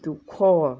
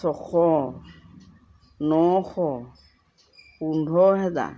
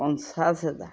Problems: constant background noise